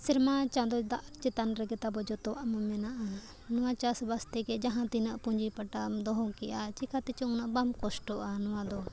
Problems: none marked